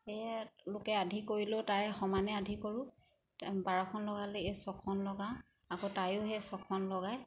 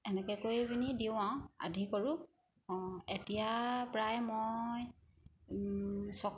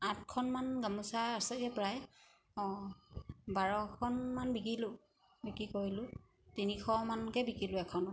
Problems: none marked